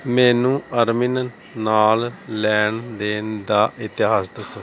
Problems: background sounds at intervals